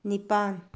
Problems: low volume